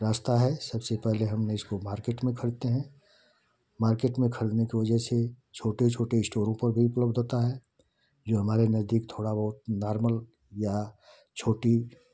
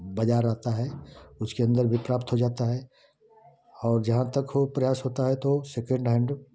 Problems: none marked